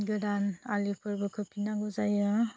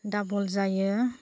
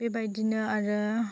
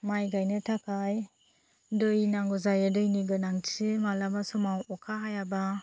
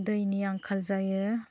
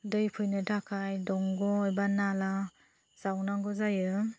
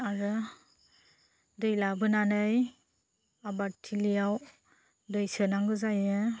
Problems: low volume